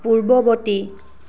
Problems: background sounds at intervals